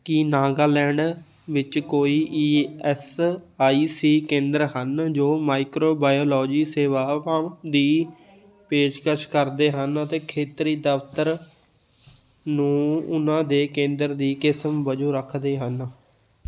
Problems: continuous background conversations